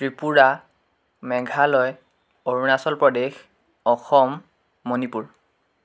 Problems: constant background noise